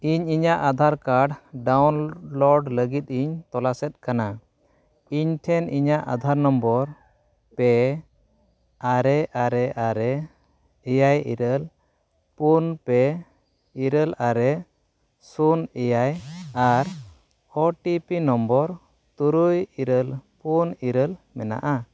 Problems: background sounds at intervals